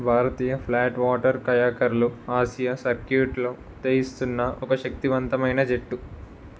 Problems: none marked